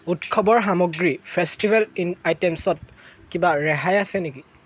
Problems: constant background noise